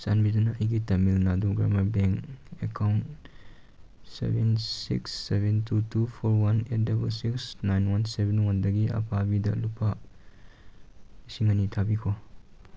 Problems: background sounds at intervals